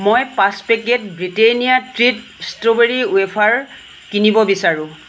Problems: constant background noise, low volume